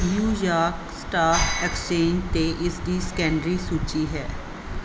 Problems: none marked